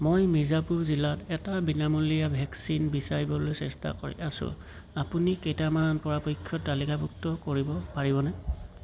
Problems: constant background noise